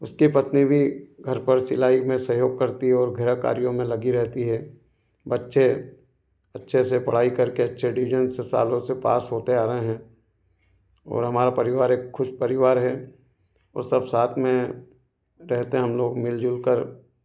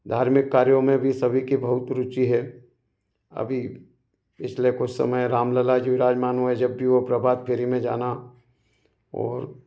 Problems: none marked